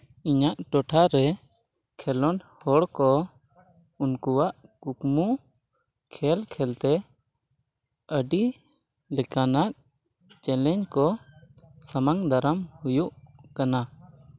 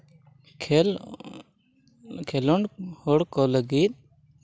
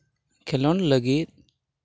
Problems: background sounds at intervals, background conversations at intervals